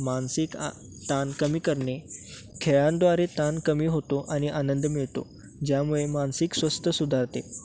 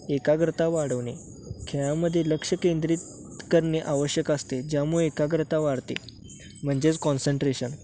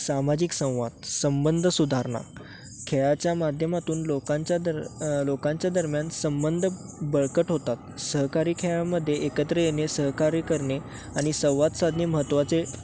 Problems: none marked